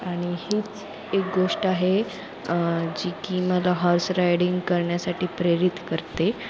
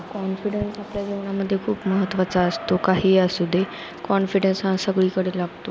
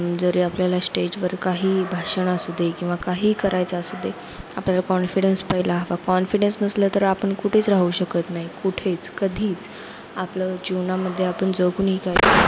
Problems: constant background noise, background conversations at intervals